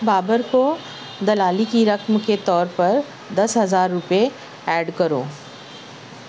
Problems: constant background noise